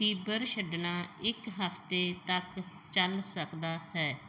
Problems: none marked